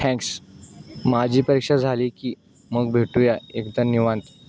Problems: constant background noise